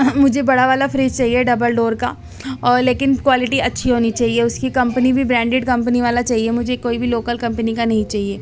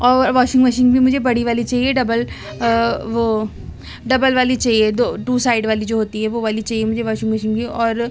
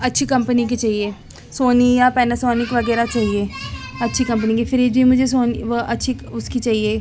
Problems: background sounds at intervals, background conversations at intervals